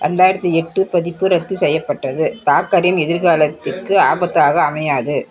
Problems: continuous background conversations